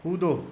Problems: none marked